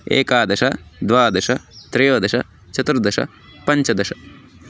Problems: none marked